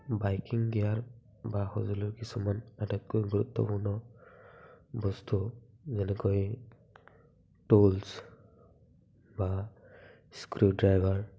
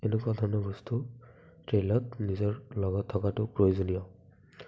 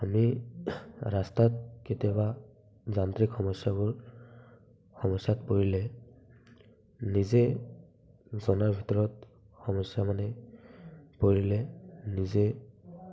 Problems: background sounds at intervals, background conversations at intervals, low volume